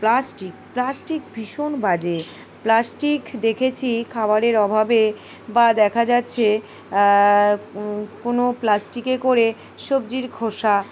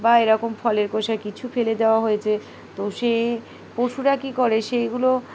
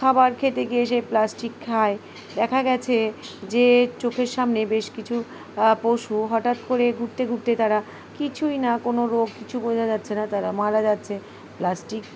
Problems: constant background noise, background conversations at intervals